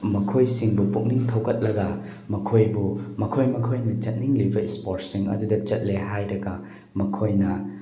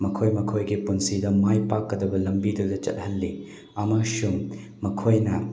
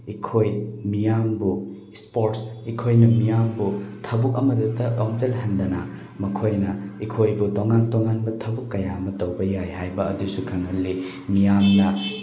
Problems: constant background noise